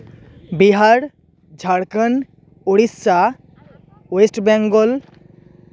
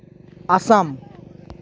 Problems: constant background noise, background conversations at intervals